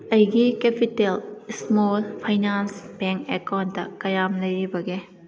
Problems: background conversations at intervals